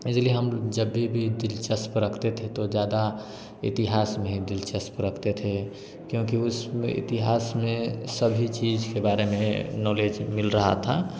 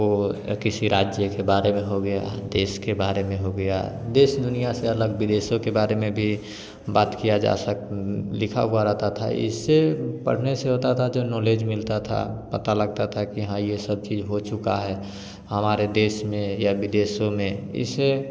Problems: constant background noise